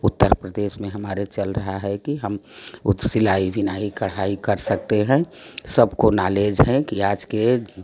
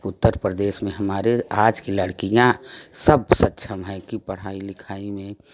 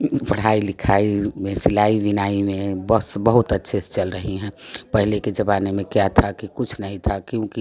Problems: none marked